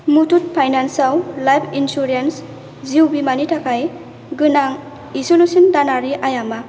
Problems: constant background noise